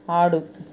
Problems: none marked